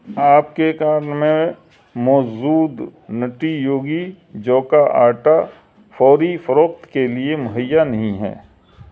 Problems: none marked